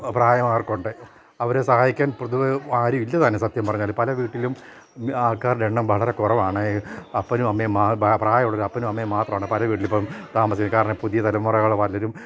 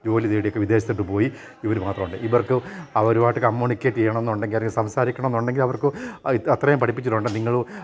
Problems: none marked